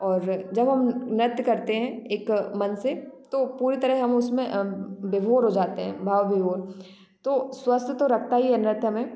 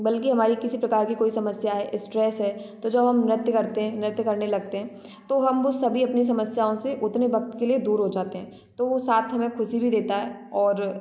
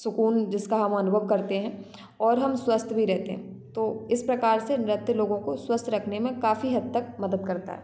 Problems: none marked